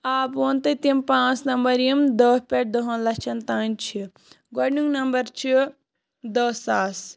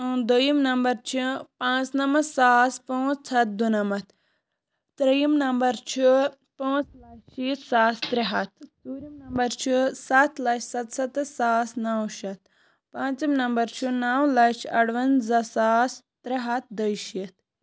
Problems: low volume